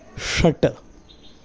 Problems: background sounds at intervals